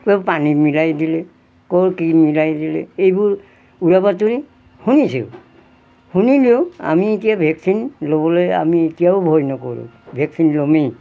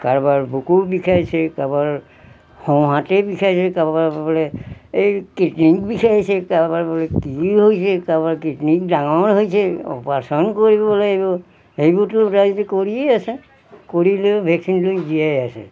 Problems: background sounds at intervals